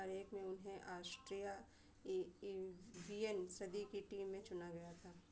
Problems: constant background noise